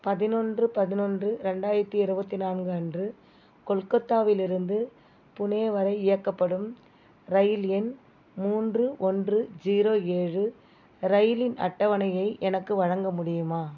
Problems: background sounds at intervals